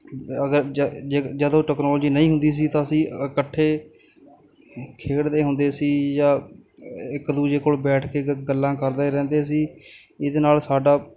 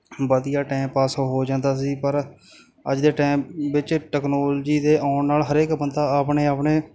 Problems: none marked